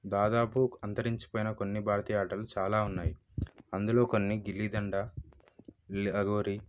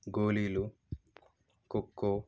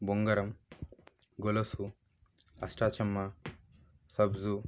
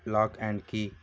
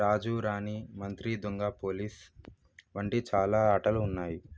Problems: low volume